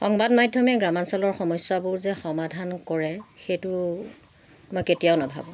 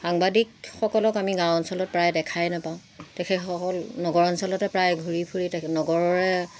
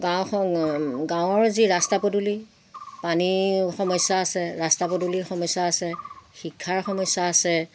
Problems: background sounds at intervals